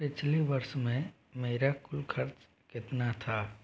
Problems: background sounds at intervals